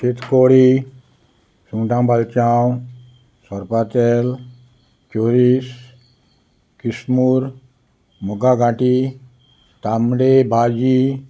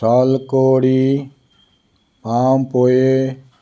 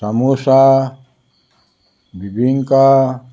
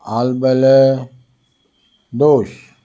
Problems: none marked